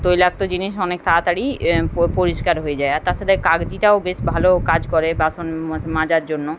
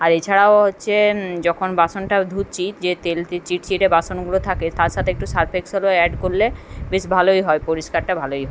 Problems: none marked